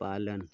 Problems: low volume